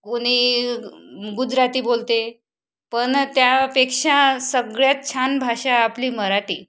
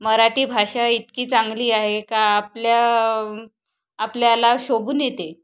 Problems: background sounds at intervals